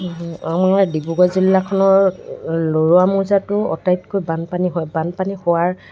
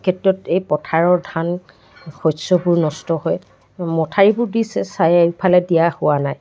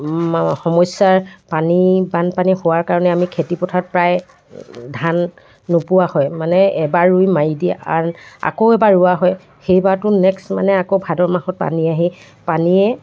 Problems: none marked